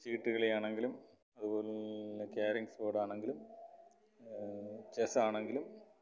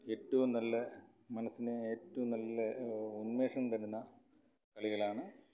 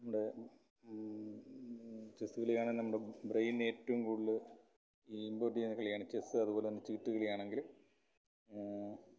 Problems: background sounds at intervals, low volume